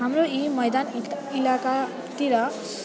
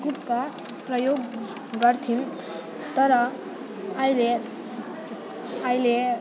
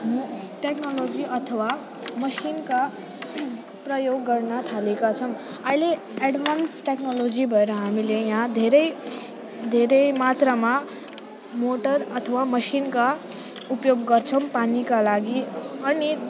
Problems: constant background noise